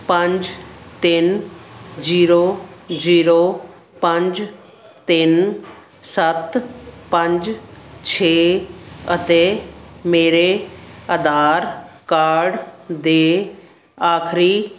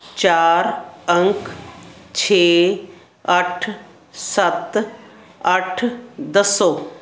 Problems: constant background noise